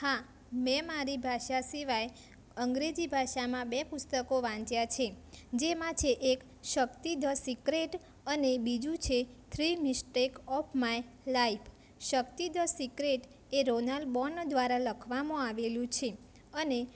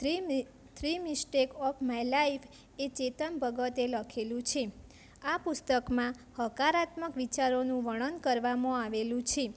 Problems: constant background noise